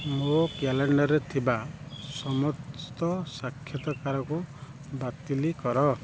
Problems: low volume